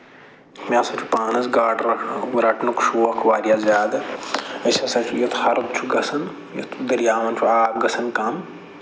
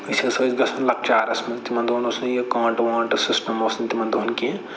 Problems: low volume